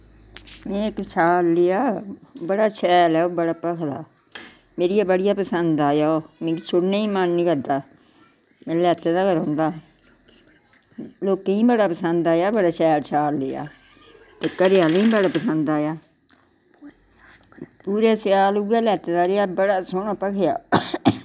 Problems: none marked